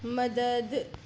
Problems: constant background noise